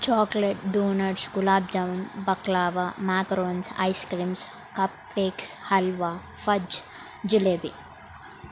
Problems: constant background noise